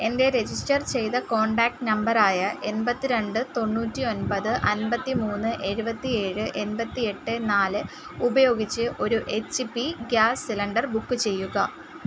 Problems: constant background noise